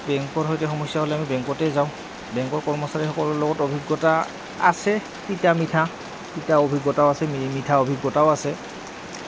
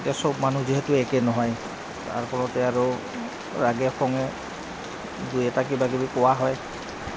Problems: constant background noise, background conversations at intervals